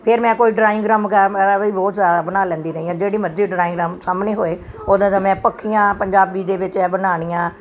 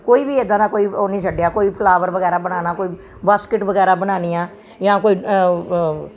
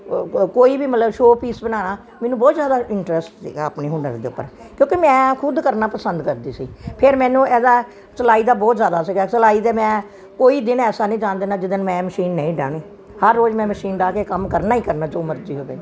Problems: background sounds at intervals